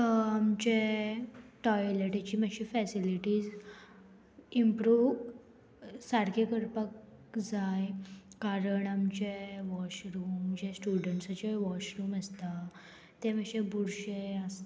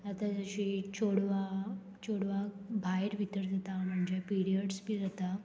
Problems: constant background noise